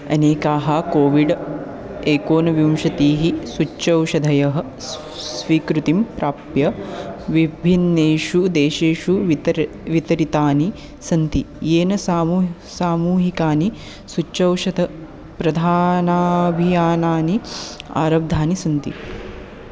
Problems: constant background noise, continuous background conversations